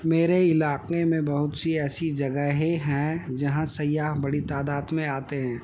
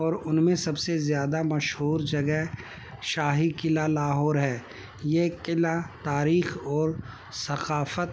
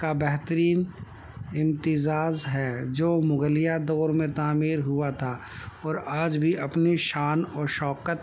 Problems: constant background noise